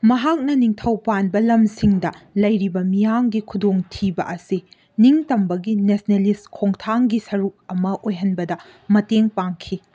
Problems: none marked